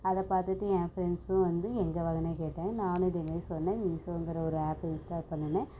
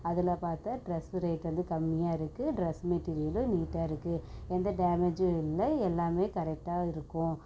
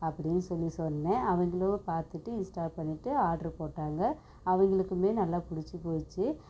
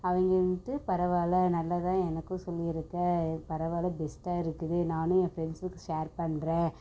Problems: constant background noise